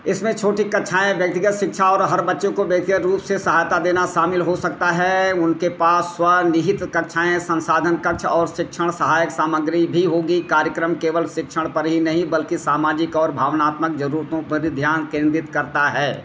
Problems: constant background noise